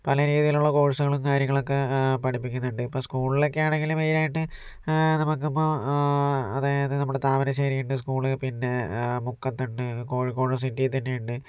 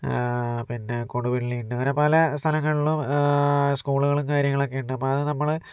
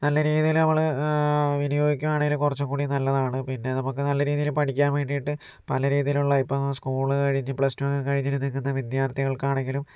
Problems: none marked